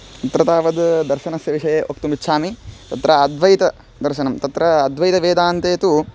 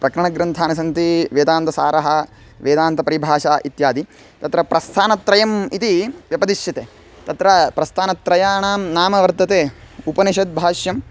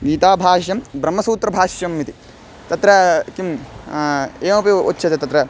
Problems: background sounds at intervals